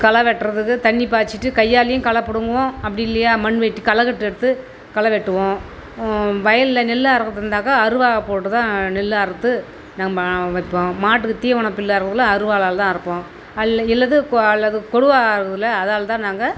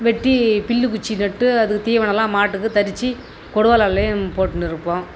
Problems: constant background noise